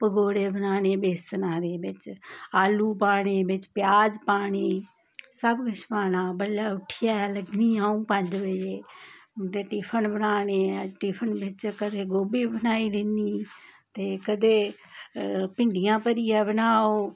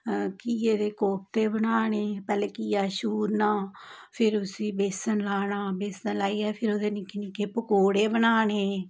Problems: none marked